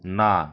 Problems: none marked